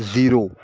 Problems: constant background noise